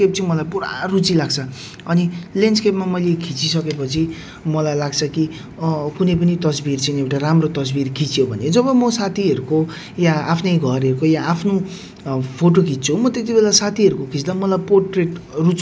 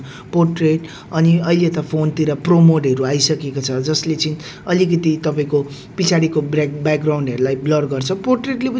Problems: none marked